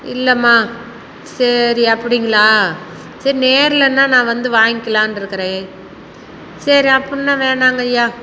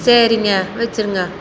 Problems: constant background noise